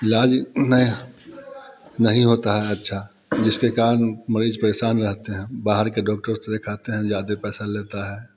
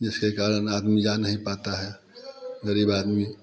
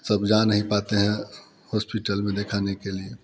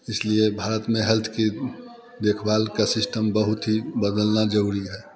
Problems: background sounds at intervals, background conversations at intervals